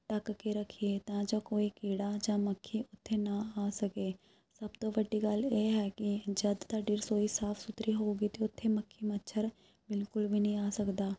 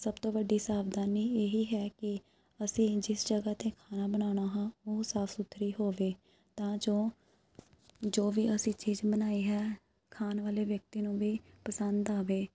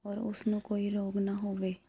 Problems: none marked